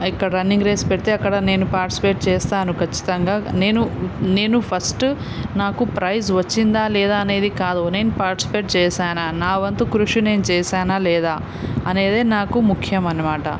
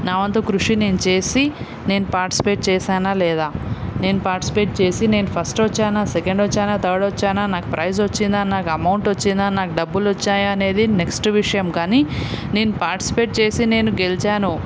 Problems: none marked